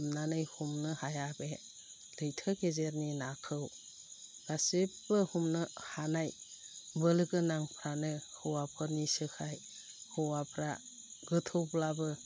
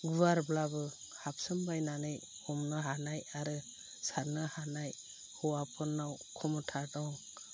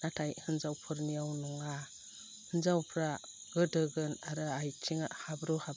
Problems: low volume